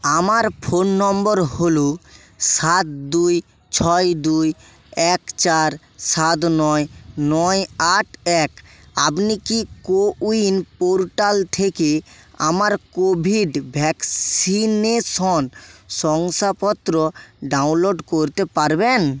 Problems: none marked